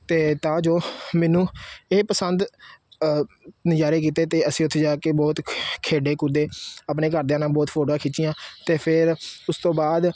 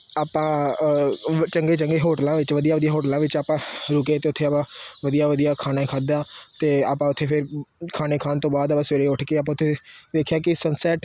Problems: none marked